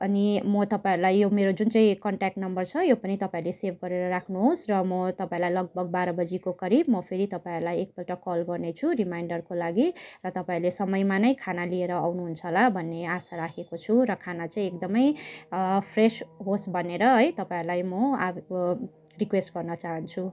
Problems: none marked